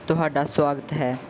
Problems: background sounds at intervals